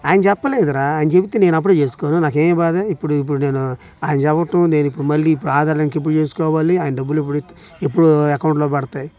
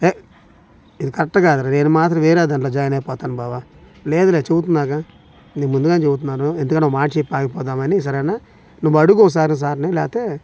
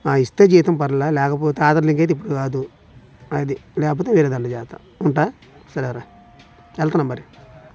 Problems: background conversations at intervals